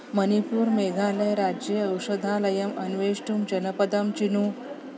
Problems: constant background noise